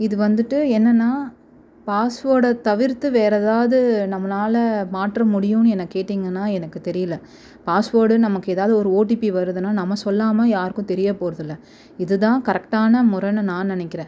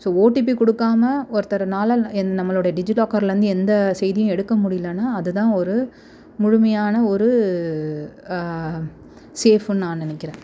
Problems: constant background noise